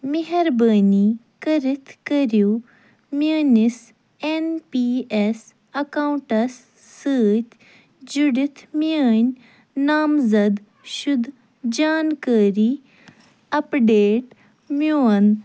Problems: none marked